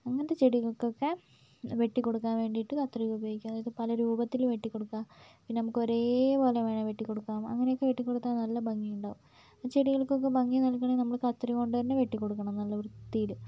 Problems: low volume